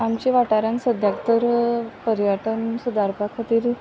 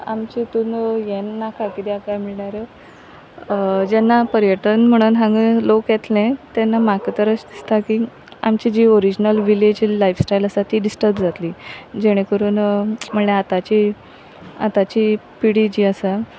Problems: none marked